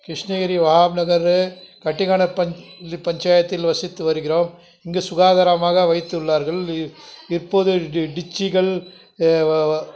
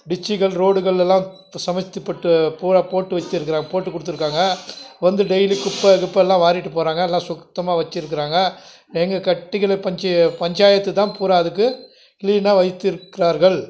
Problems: background sounds at intervals, background conversations at intervals